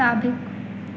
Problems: constant background noise, echo